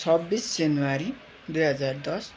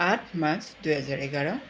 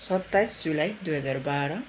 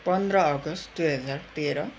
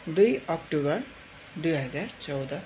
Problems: constant background noise, continuous background conversations